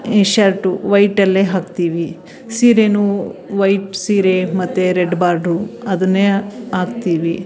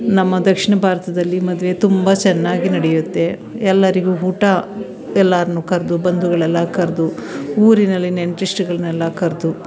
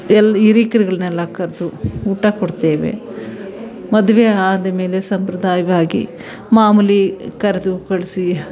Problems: none marked